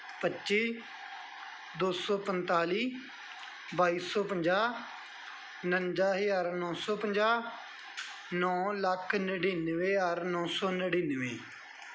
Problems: none marked